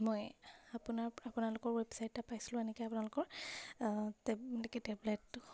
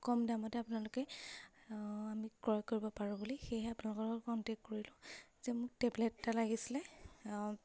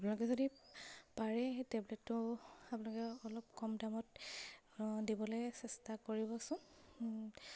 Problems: none marked